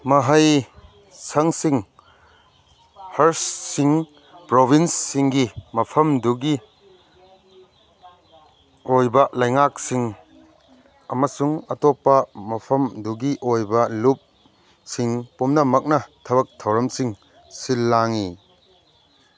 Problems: background sounds at intervals